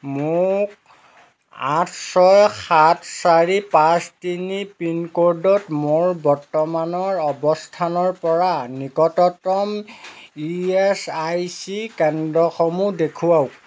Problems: none marked